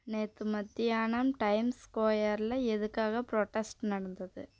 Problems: low volume